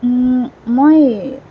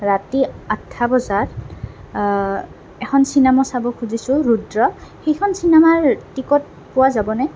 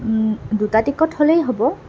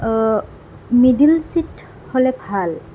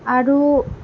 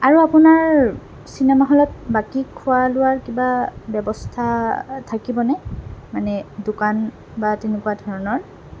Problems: constant background noise